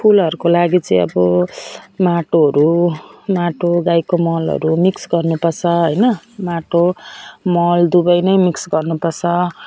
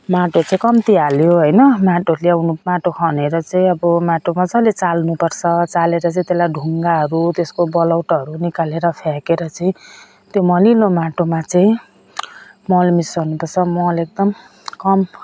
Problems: none marked